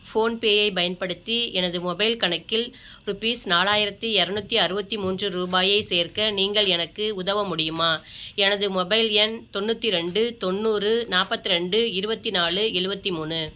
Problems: none marked